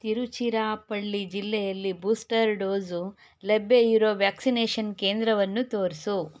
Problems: none marked